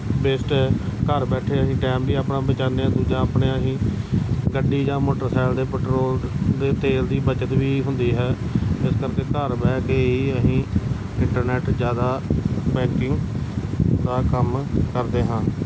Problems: constant background noise